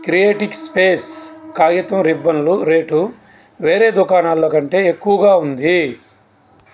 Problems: none marked